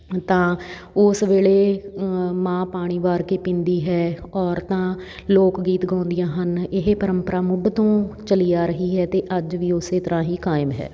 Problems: constant background noise